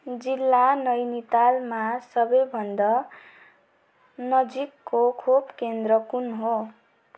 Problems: none marked